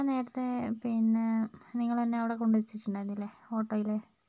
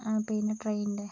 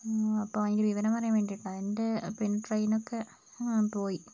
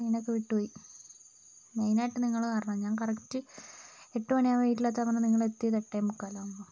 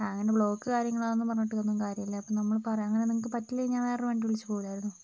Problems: low volume